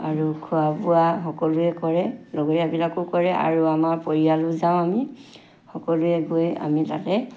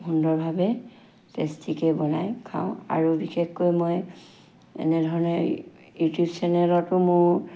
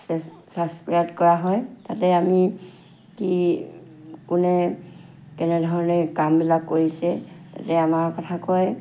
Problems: constant background noise